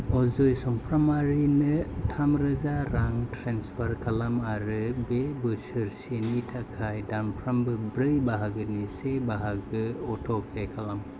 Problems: constant background noise